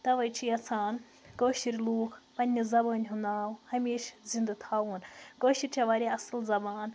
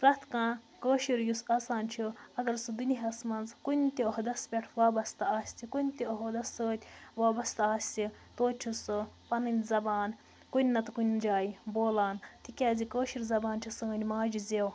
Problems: constant background noise